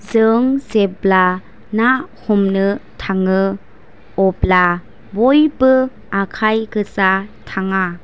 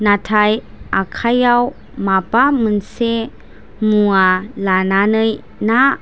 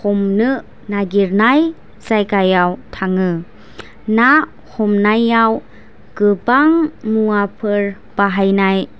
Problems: none marked